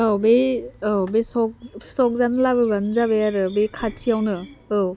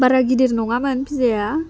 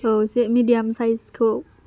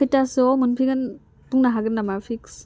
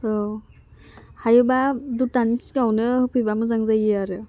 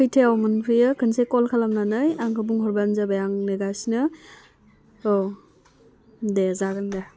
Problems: constant background noise